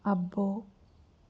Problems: none marked